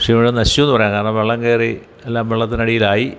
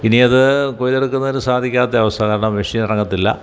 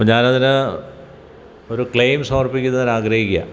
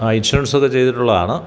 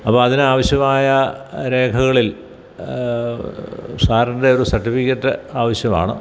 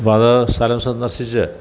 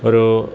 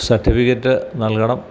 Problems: none marked